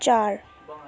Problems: background conversations at intervals